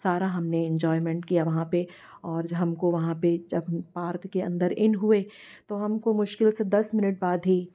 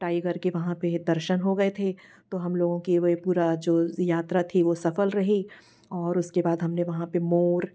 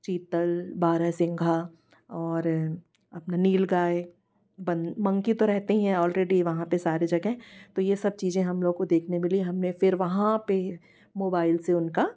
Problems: constant background noise